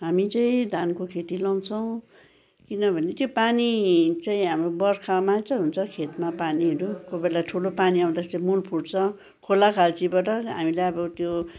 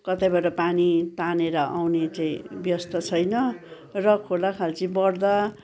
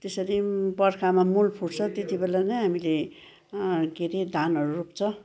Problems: background sounds at intervals